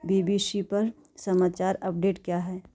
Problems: none marked